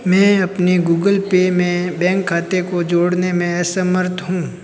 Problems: none marked